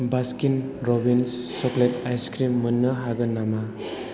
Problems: none marked